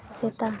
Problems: background conversations at intervals